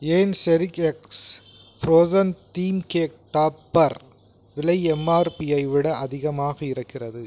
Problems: background sounds at intervals